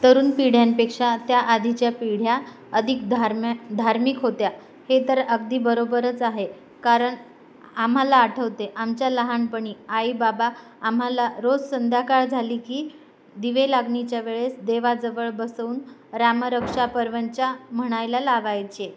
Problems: background sounds at intervals